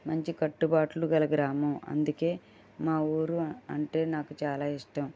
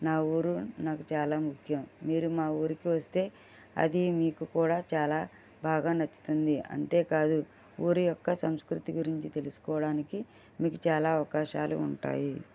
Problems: none marked